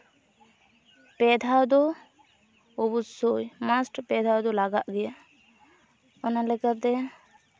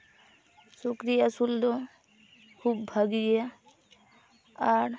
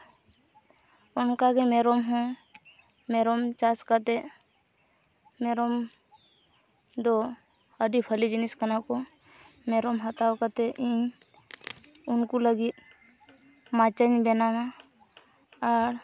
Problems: none marked